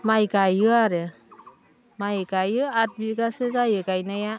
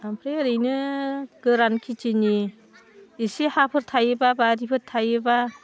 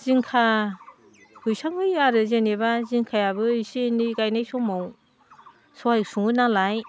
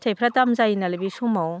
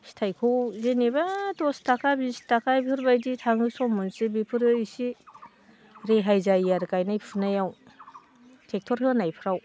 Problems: constant background noise